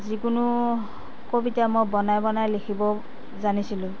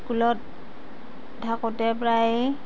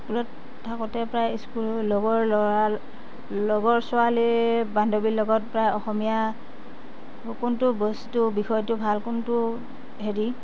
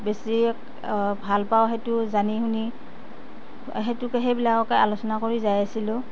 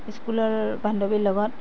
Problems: constant background noise